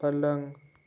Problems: background sounds at intervals